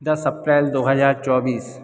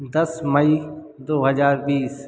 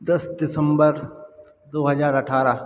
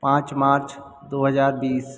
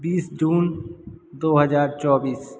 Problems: background sounds at intervals